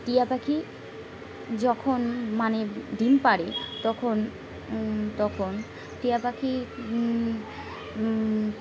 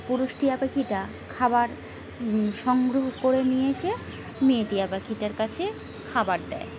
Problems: constant background noise, background conversations at intervals